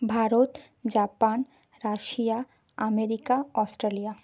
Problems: none marked